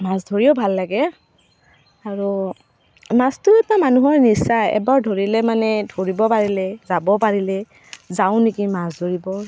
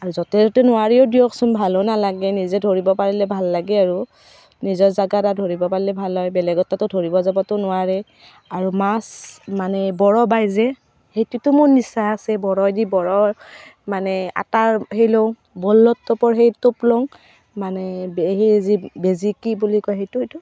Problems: constant background noise